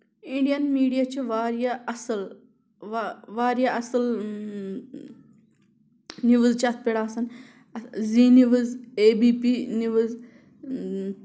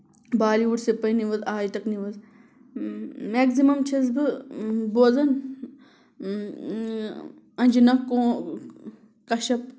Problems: constant background noise